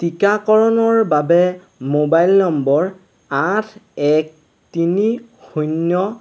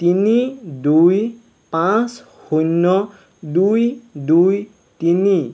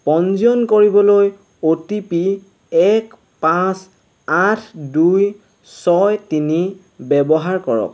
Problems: constant background noise